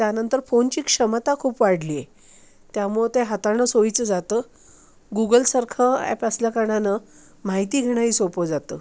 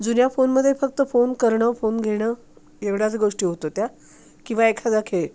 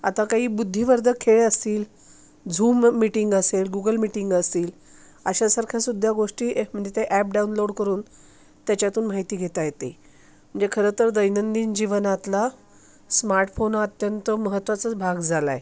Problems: constant background noise